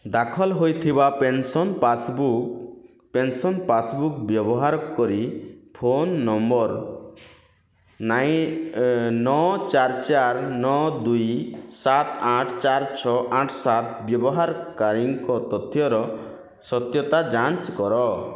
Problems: none marked